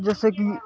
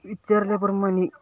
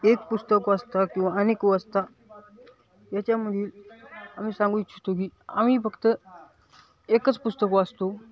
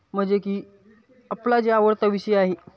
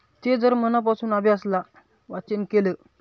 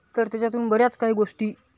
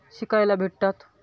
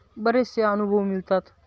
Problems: none marked